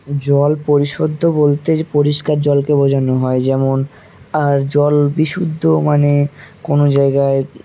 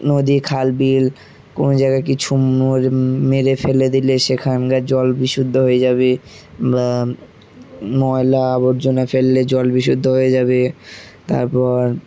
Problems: constant background noise